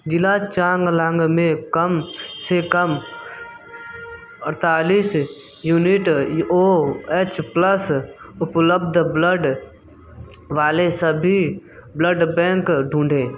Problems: background sounds at intervals